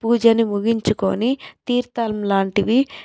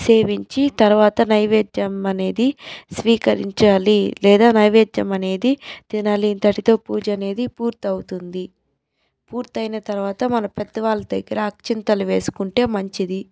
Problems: background sounds at intervals